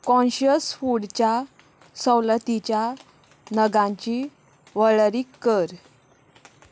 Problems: none marked